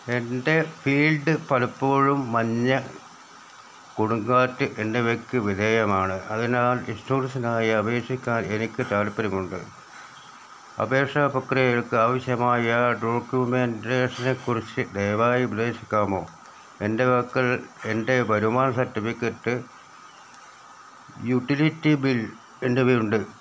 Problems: none marked